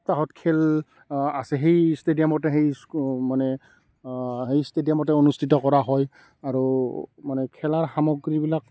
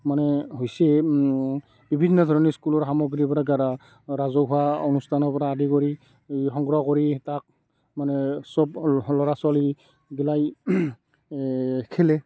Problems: background sounds at intervals, background conversations at intervals